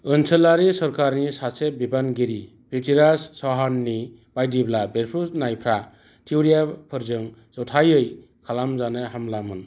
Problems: none marked